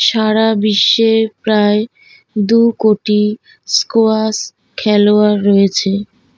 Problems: none marked